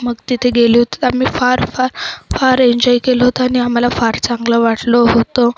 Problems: background sounds at intervals, background conversations at intervals